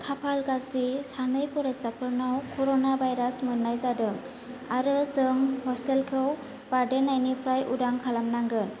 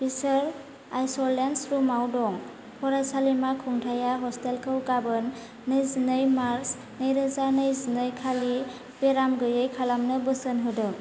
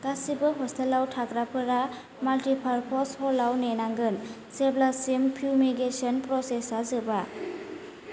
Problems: constant background noise